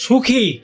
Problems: constant background noise, background conversations at intervals